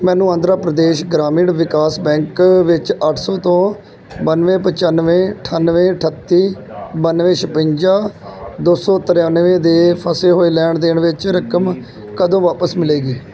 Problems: continuous background conversations